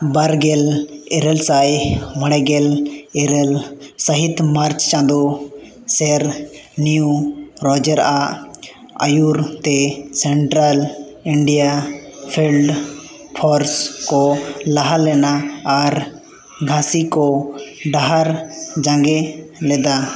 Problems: constant background noise, echo